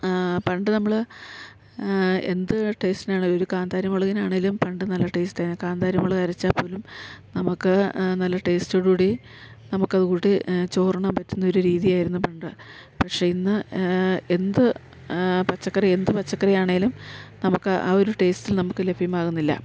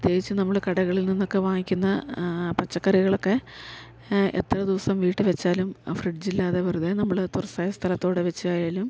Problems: none marked